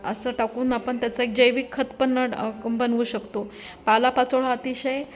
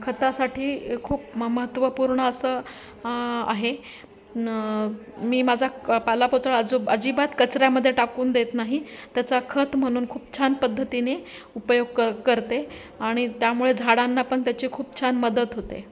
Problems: constant background noise, continuous background conversations